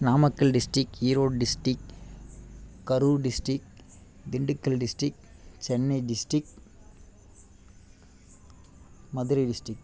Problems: none marked